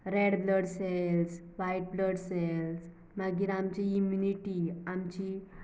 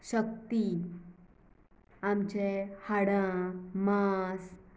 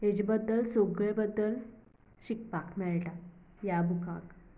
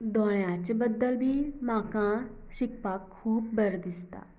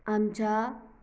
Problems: none marked